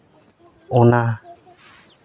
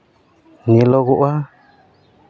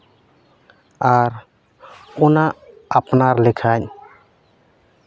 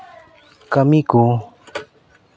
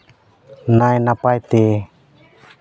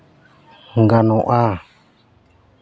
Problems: background sounds at intervals, background conversations at intervals